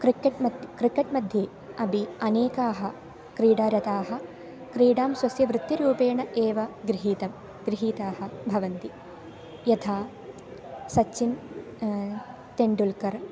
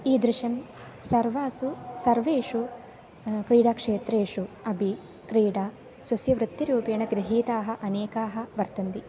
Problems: constant background noise